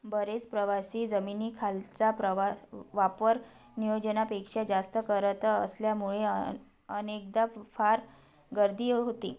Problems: none marked